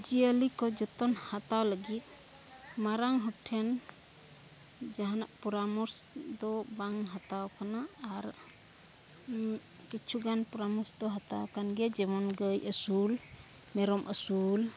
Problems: none marked